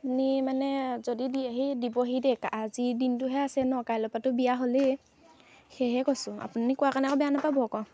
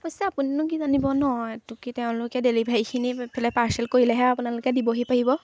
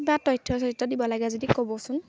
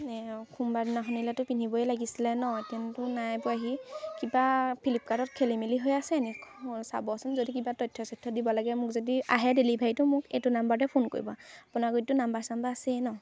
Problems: none marked